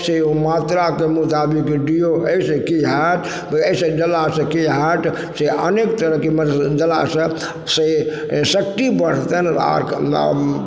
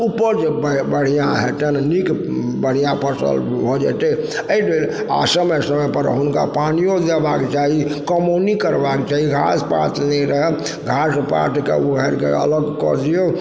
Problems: background sounds at intervals